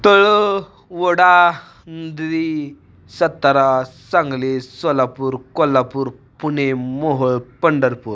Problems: constant background noise